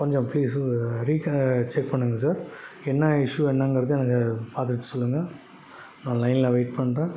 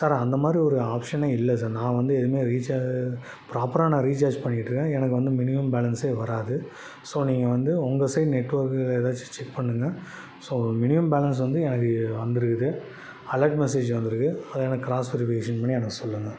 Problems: background sounds at intervals